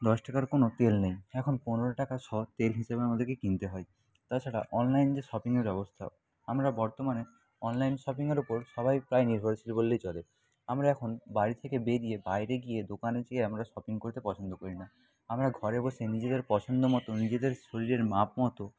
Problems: background sounds at intervals, background conversations at intervals